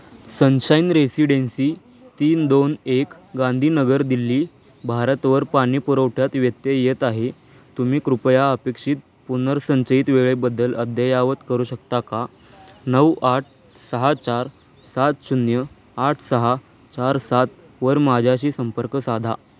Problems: constant background noise, background conversations at intervals